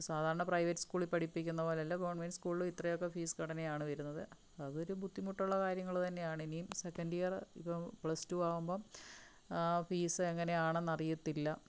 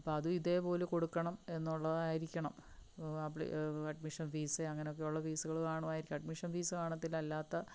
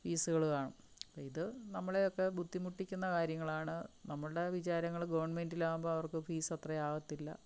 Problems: low volume